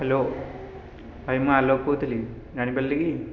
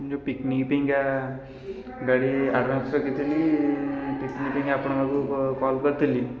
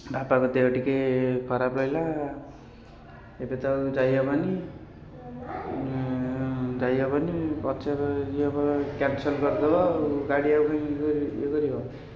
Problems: constant background noise